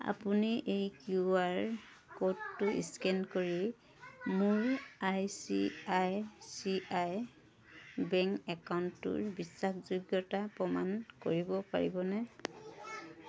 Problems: constant background noise, continuous background conversations